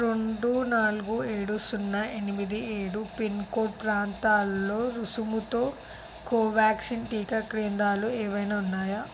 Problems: constant background noise